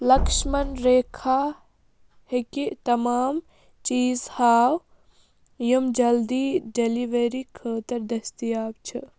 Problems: none marked